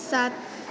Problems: constant background noise